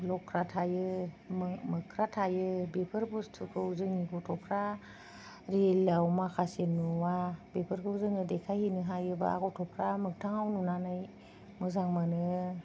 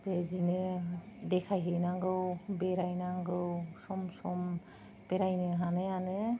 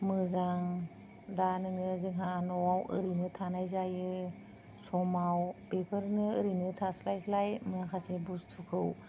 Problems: none marked